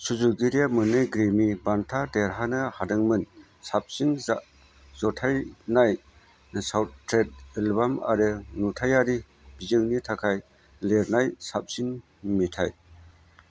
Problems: none marked